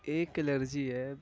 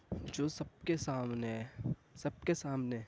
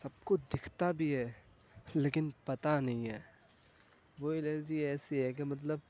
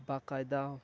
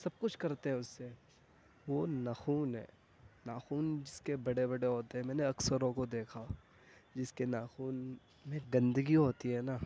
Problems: constant background noise